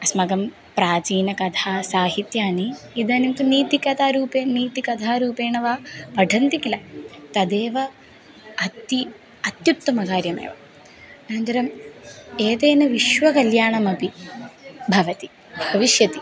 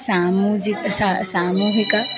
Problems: background sounds at intervals